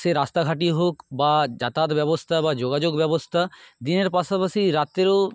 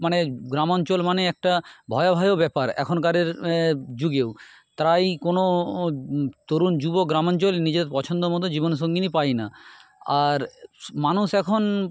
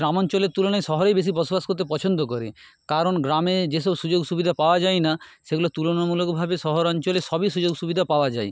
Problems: none marked